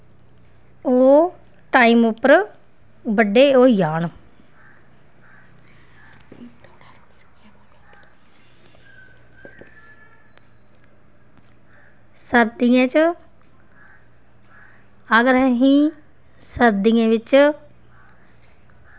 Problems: background sounds at intervals